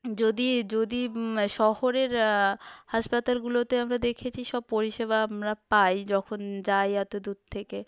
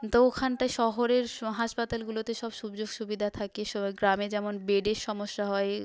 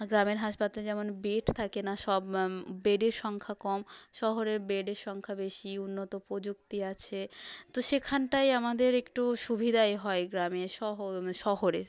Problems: background conversations at intervals